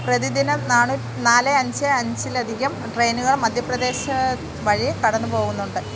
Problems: constant background noise